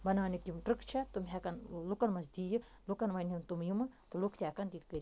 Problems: none marked